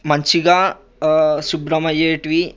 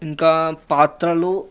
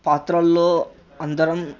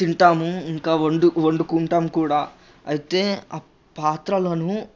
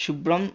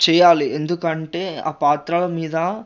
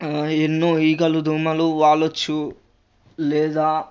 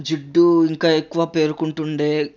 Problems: none marked